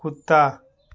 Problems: none marked